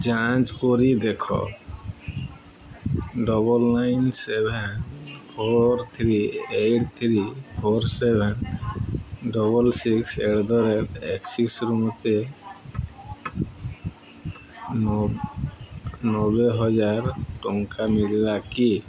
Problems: constant background noise, continuous background conversations